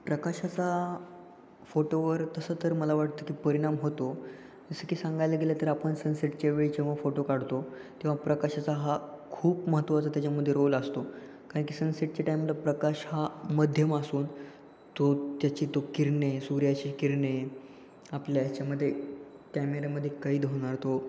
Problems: constant background noise, echo